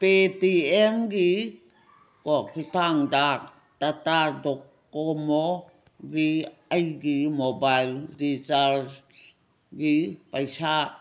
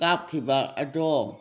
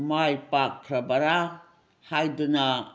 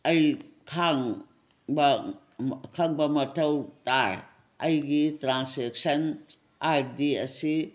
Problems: none marked